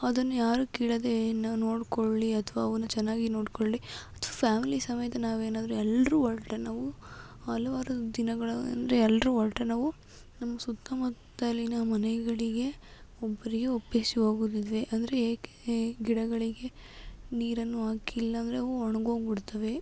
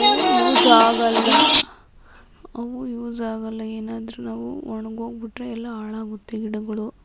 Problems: constant background noise